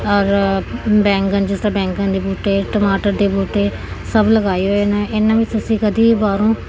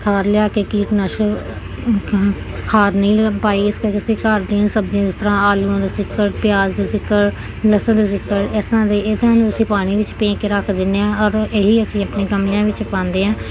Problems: continuous background conversations